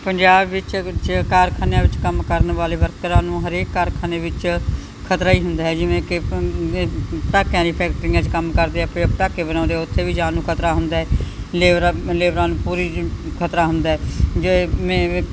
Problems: background sounds at intervals